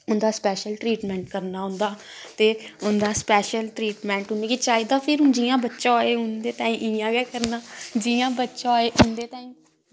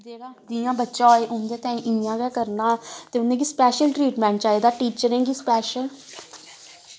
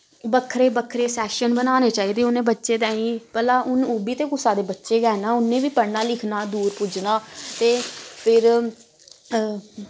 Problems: background sounds at intervals